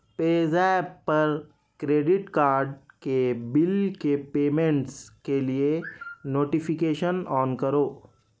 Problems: constant background noise